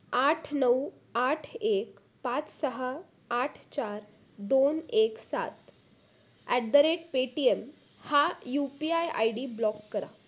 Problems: none marked